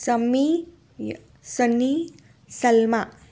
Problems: none marked